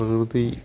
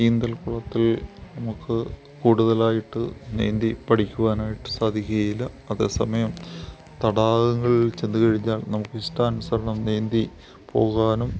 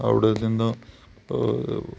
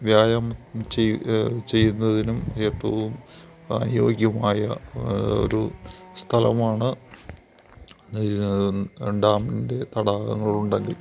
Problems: none marked